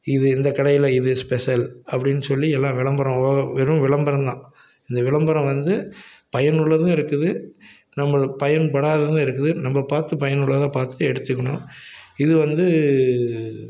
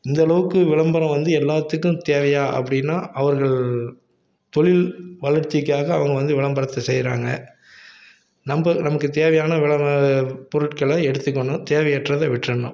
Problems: none marked